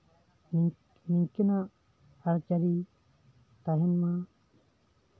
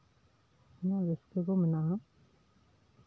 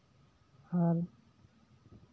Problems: background sounds at intervals